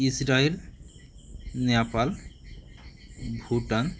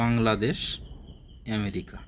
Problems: constant background noise